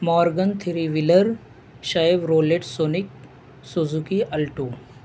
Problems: constant background noise